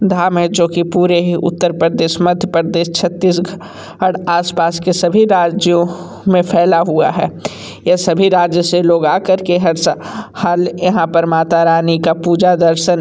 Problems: constant background noise